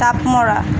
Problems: constant background noise